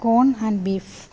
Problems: none marked